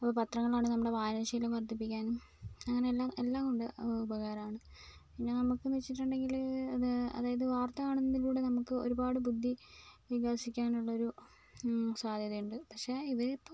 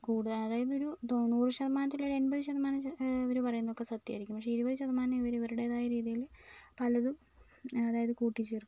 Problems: low volume